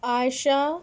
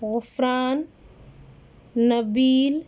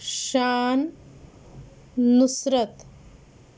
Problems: constant background noise